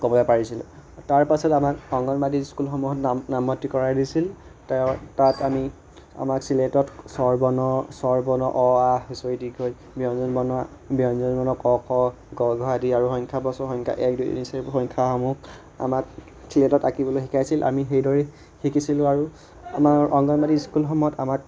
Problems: continuous background conversations